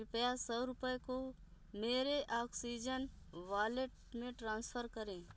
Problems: none marked